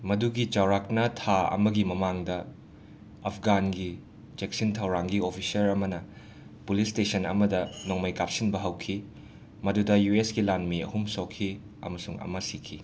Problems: constant background noise